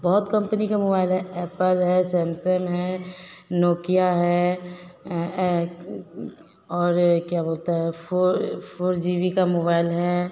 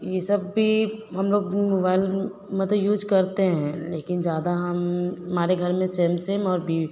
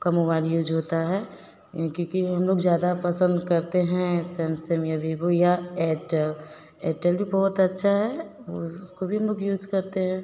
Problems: none marked